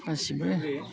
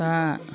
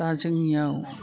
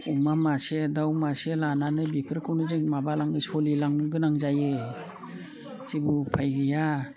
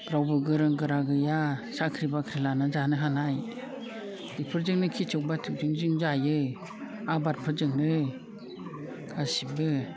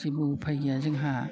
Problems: low volume